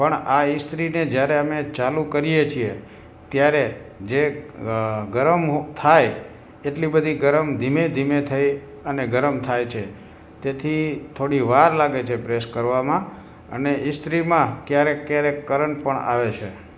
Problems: background sounds at intervals